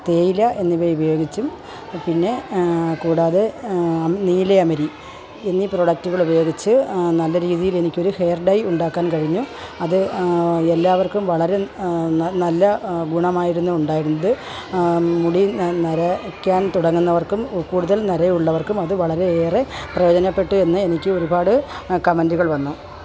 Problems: constant background noise, low volume